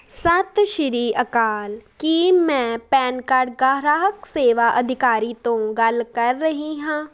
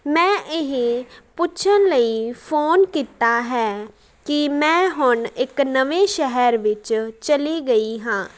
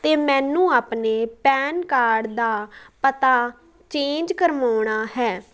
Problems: none marked